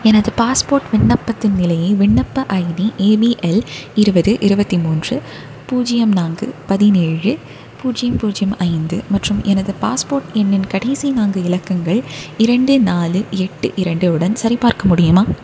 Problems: none marked